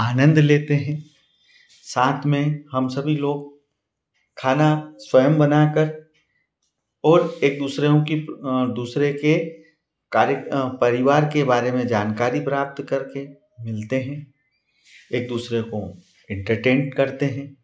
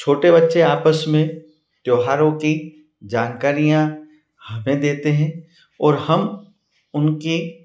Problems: none marked